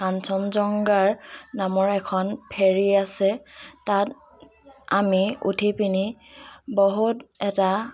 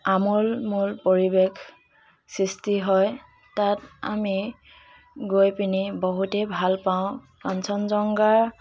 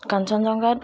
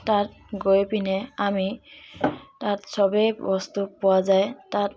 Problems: constant background noise, background conversations at intervals